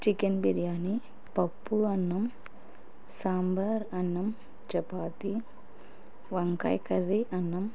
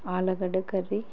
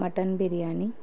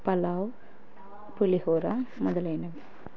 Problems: none marked